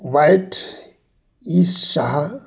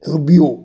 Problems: background sounds at intervals